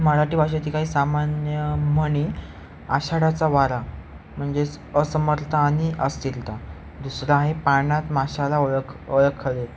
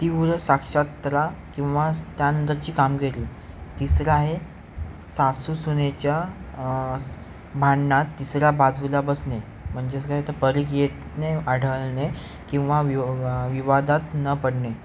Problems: constant background noise